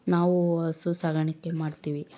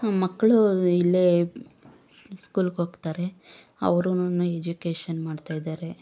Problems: none marked